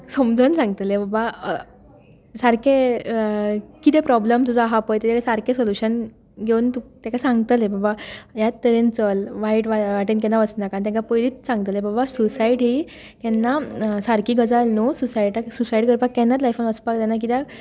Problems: none marked